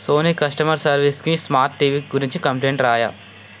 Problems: constant background noise